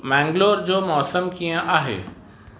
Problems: constant background noise